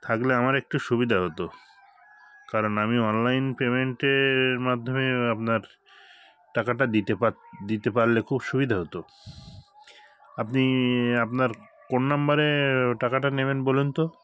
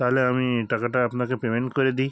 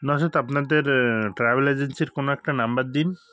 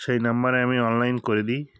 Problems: background sounds at intervals, background conversations at intervals